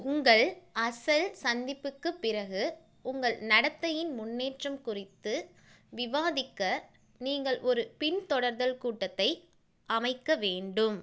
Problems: none marked